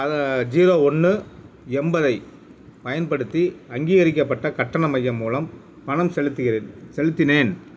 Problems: none marked